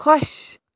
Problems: none marked